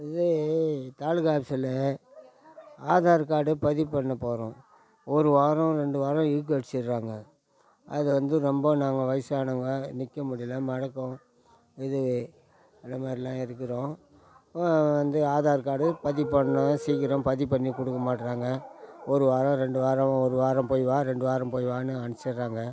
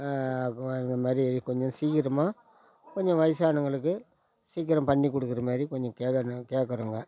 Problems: background sounds at intervals